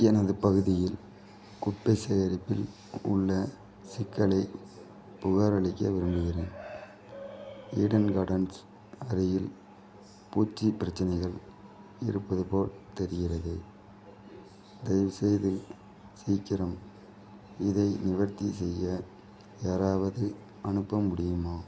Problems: none marked